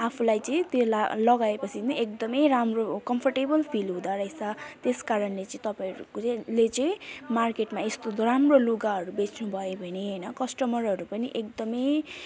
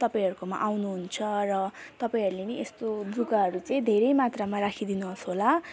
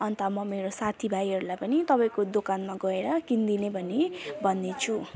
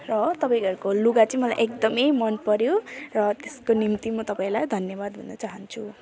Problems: continuous background conversations